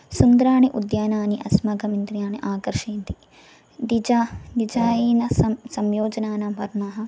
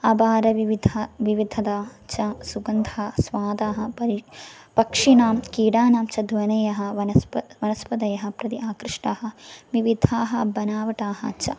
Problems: none marked